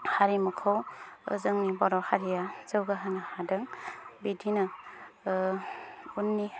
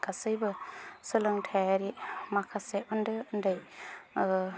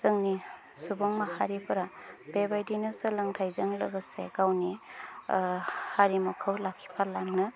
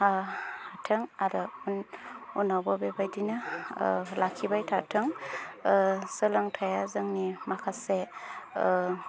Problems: low volume